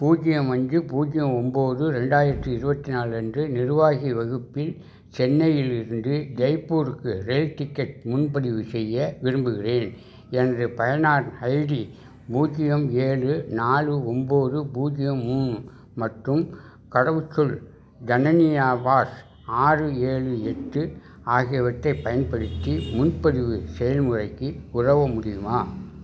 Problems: background sounds at intervals